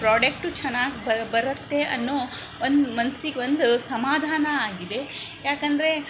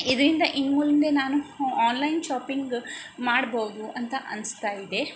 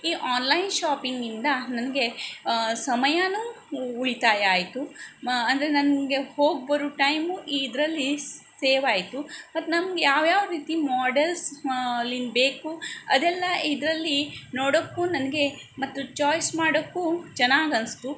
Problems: background sounds at intervals